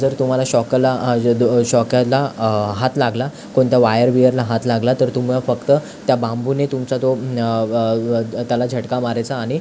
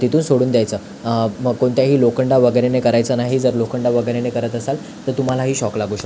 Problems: constant background noise